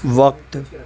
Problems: constant background noise, background conversations at intervals